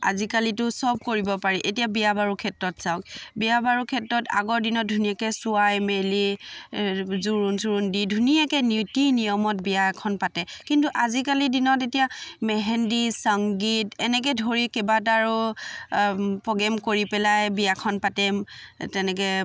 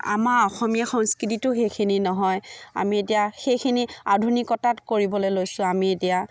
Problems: background sounds at intervals